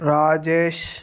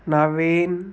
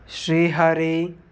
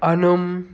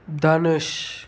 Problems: constant background noise